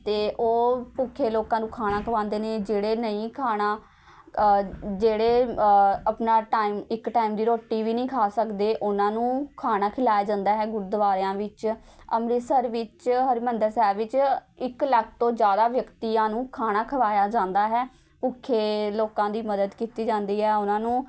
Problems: constant background noise, background conversations at intervals